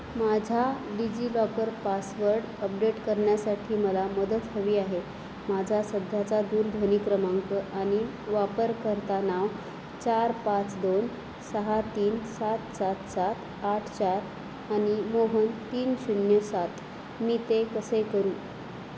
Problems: constant background noise